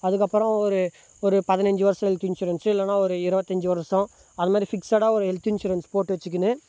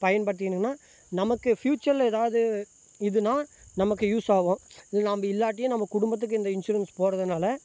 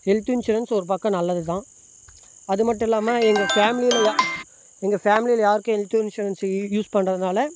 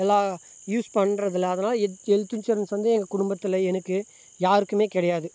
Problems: constant background noise